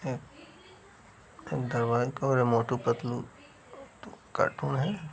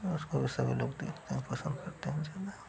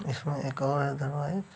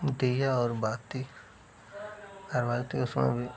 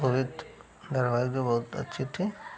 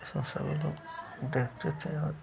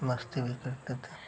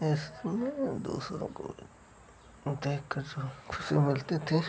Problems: none marked